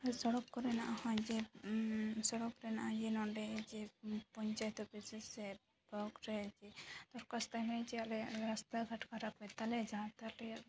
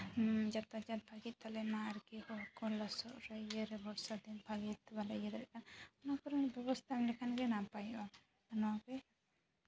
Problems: background sounds at intervals, background conversations at intervals